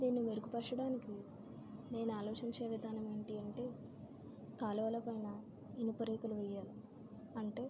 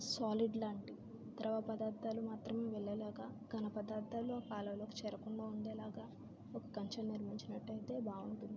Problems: constant background noise, low volume